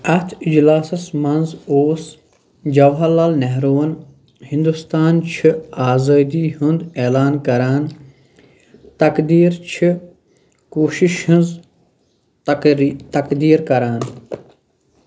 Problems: background sounds at intervals